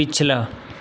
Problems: none marked